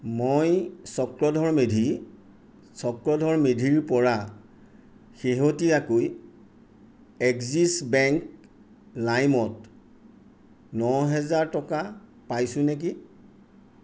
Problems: none marked